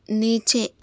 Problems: constant background noise, low volume